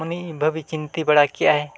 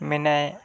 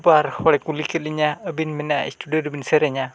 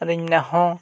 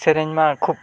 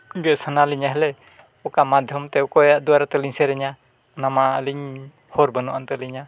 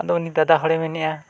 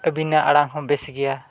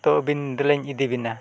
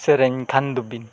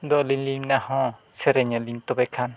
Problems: background sounds at intervals